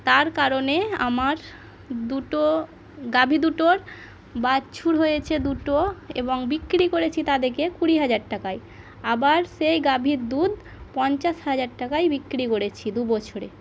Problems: background sounds at intervals, background conversations at intervals